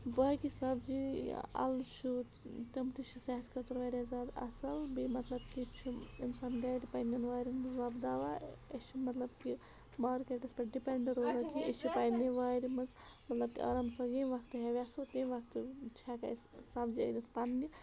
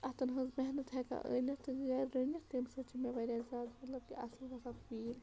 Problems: constant background noise, background conversations at intervals